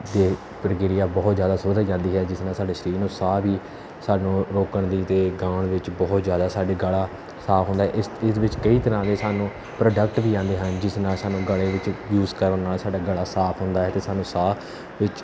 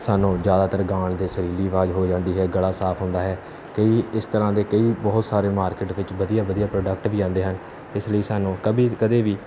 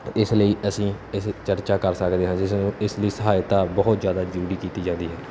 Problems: background sounds at intervals